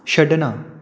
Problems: none marked